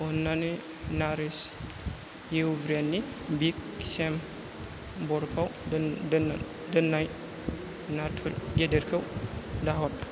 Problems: constant background noise